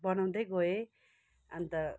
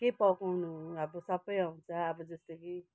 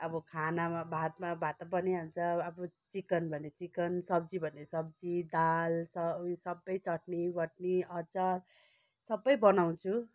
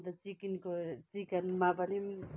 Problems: none marked